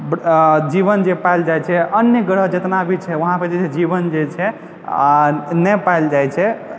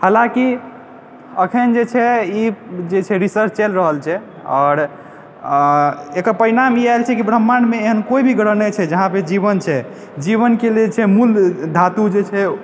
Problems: background sounds at intervals